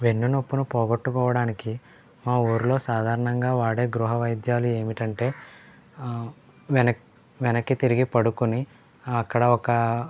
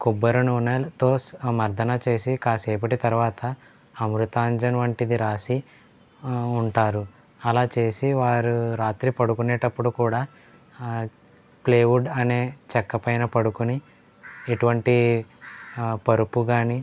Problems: low volume